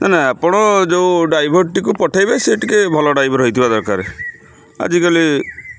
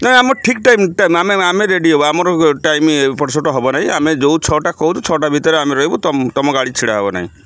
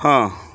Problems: constant background noise